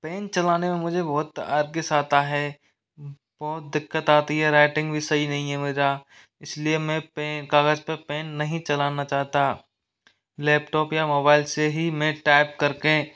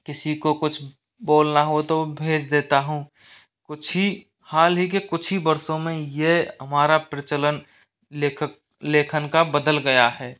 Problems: background sounds at intervals